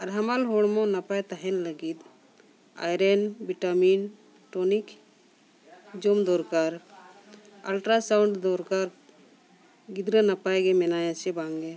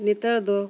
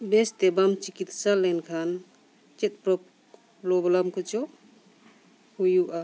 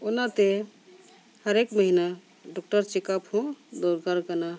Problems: none marked